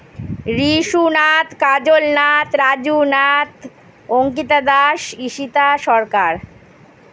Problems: none marked